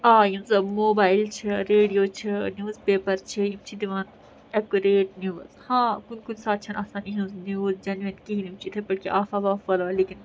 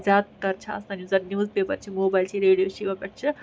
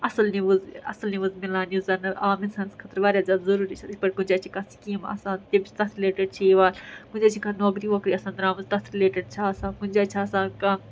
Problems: background sounds at intervals